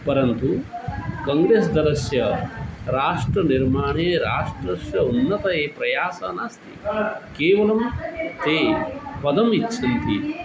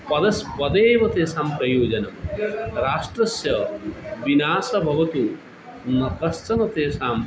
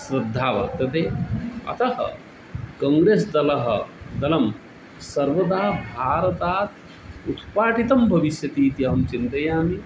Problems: constant background noise